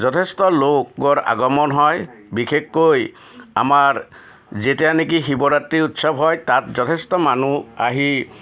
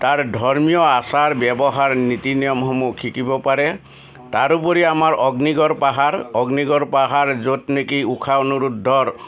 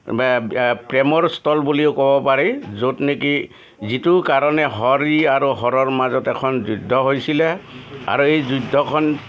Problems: none marked